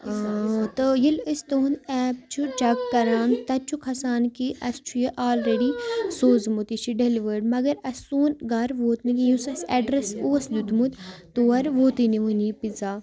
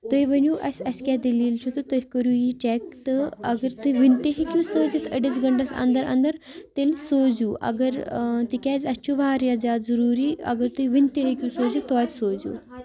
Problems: constant background noise